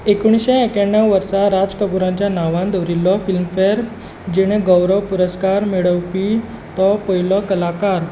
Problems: none marked